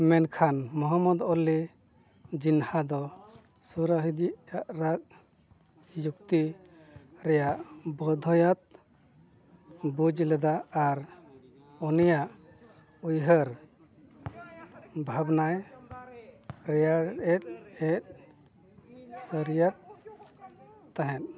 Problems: constant background noise